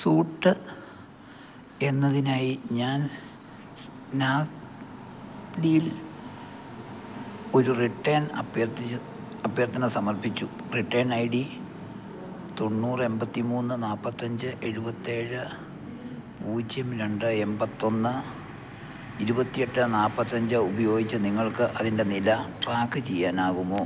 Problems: none marked